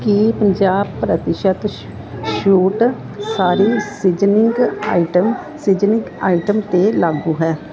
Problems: constant background noise